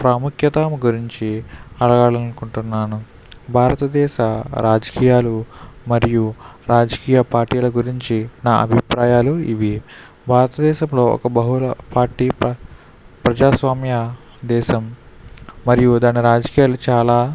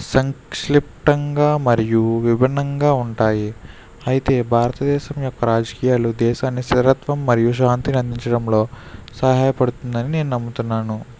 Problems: none marked